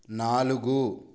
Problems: none marked